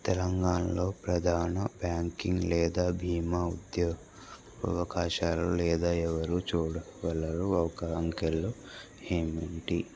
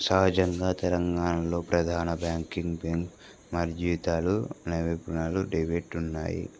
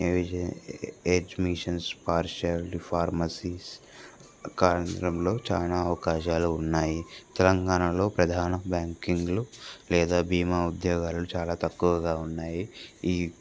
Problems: constant background noise